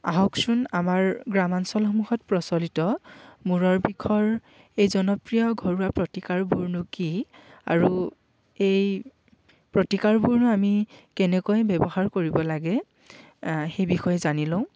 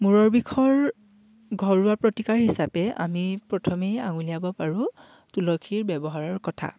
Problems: none marked